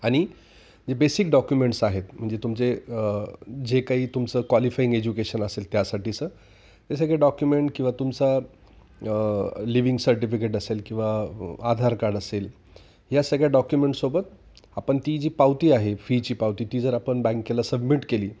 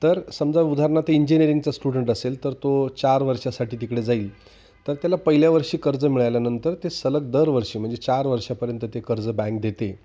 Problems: none marked